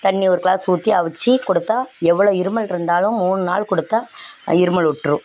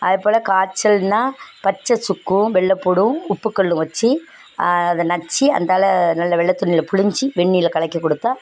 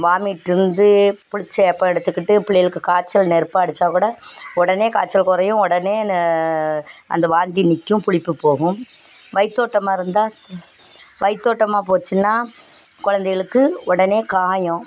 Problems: background sounds at intervals